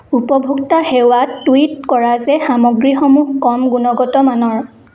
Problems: none marked